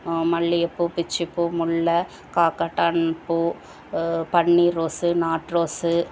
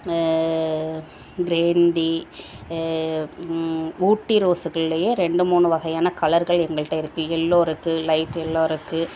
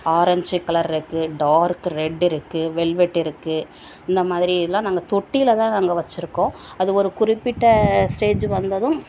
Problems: none marked